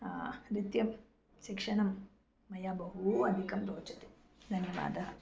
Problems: none marked